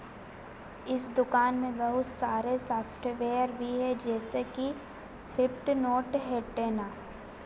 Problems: constant background noise